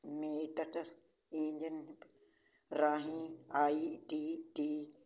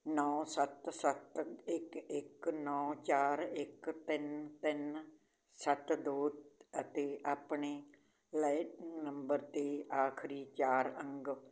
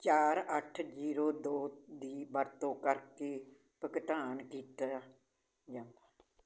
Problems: background sounds at intervals